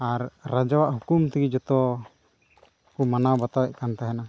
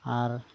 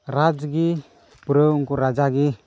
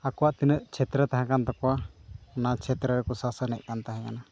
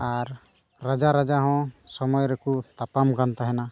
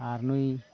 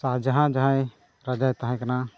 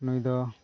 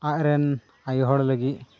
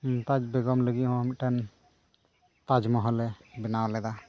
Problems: none marked